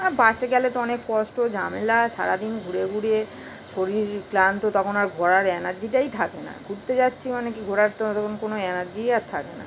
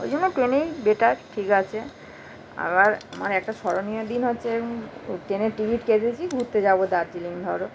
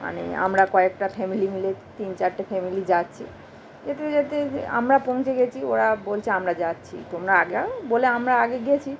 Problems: constant background noise